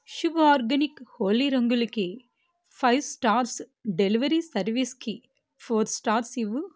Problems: none marked